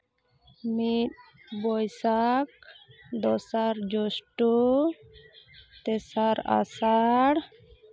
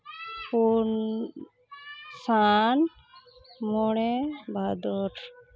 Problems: background conversations at intervals